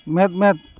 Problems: background sounds at intervals